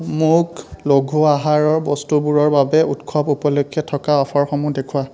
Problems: continuous background conversations